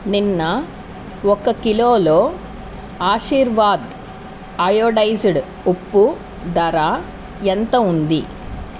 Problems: constant background noise